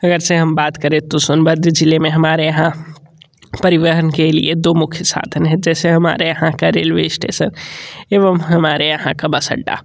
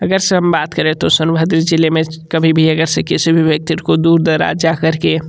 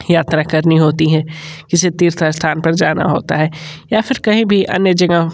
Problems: none marked